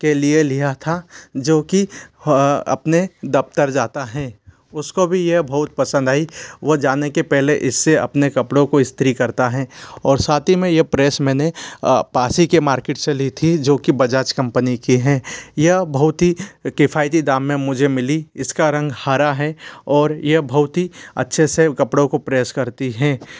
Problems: constant background noise